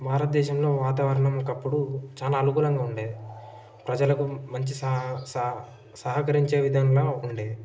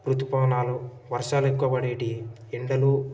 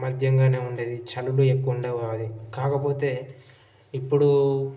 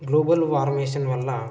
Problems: background sounds at intervals, background conversations at intervals